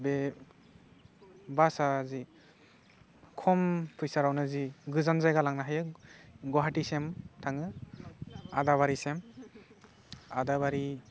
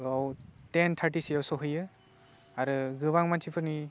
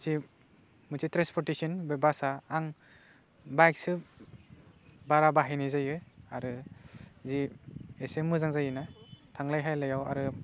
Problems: low volume